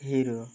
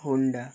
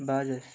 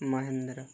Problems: constant background noise